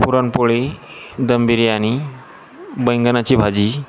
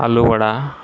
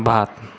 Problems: constant background noise, background conversations at intervals